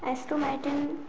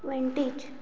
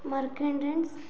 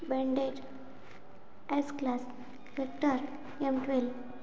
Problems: none marked